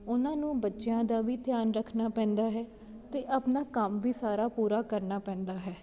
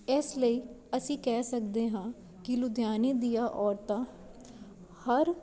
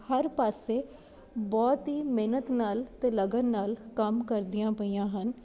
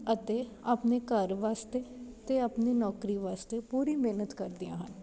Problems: none marked